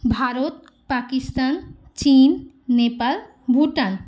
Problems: background sounds at intervals